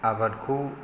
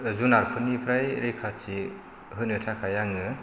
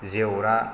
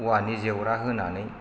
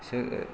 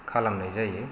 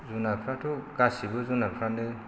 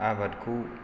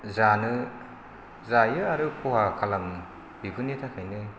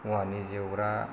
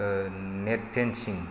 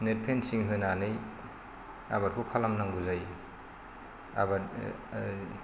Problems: constant background noise